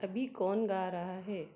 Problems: none marked